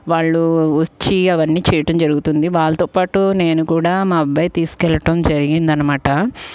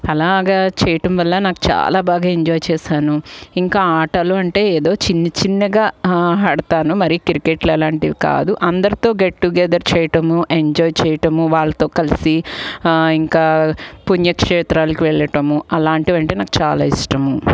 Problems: background sounds at intervals